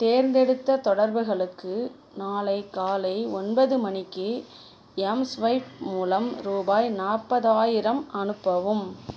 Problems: none marked